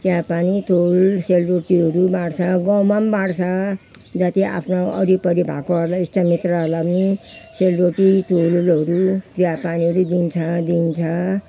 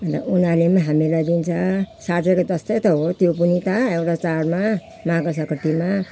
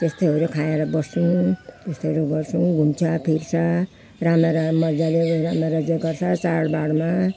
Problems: none marked